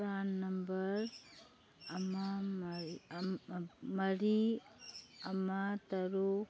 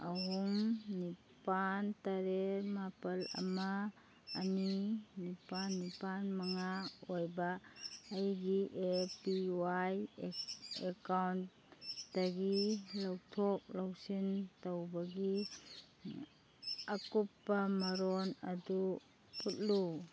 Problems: background sounds at intervals